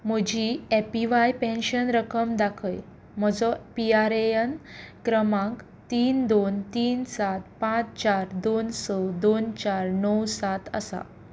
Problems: none marked